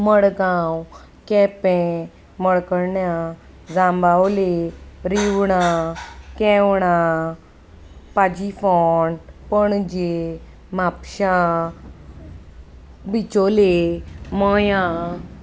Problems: constant background noise